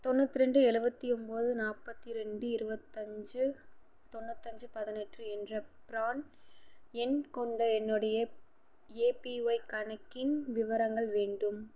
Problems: none marked